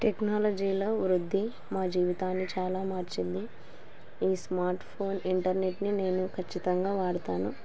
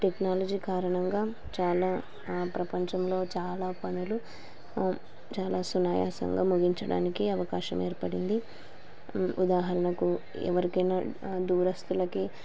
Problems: constant background noise